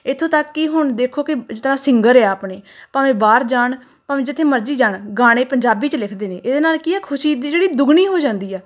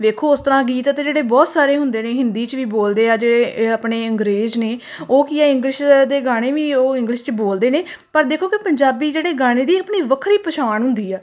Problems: none marked